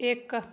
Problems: none marked